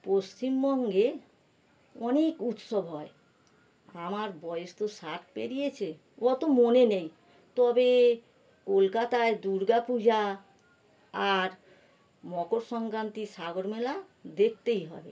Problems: none marked